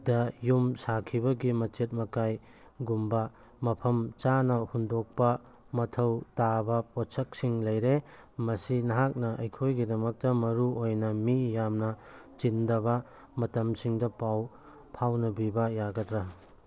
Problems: none marked